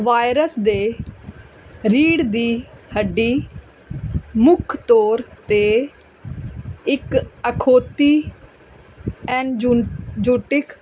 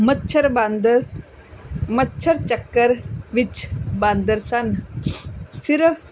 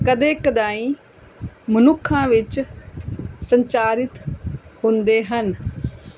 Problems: constant background noise